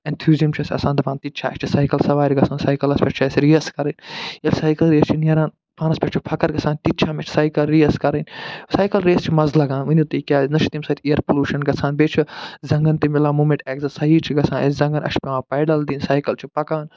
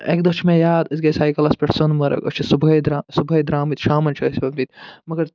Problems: none marked